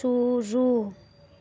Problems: background sounds at intervals